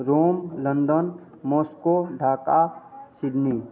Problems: none marked